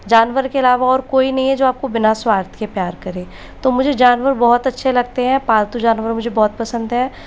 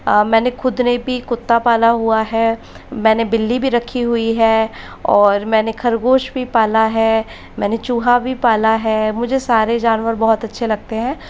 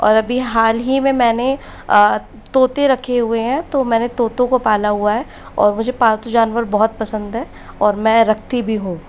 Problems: constant background noise